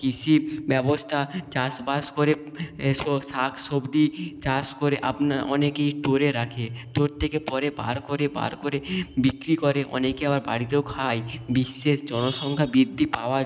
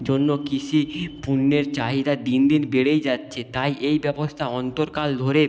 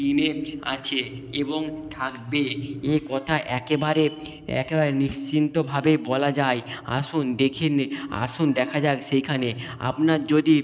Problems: background sounds at intervals